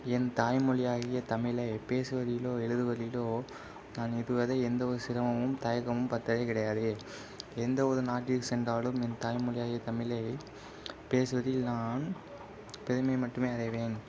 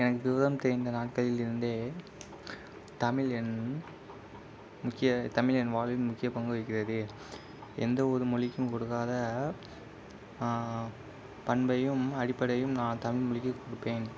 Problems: constant background noise